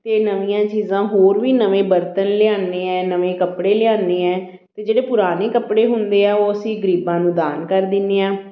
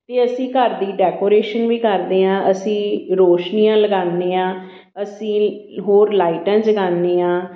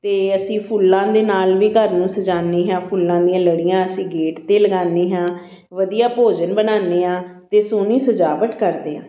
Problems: none marked